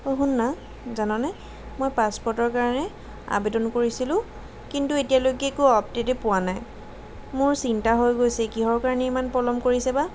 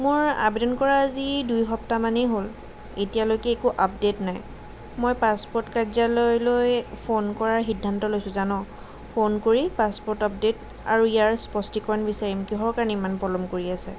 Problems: none marked